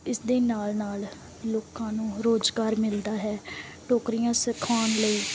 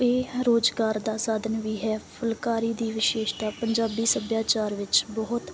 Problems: none marked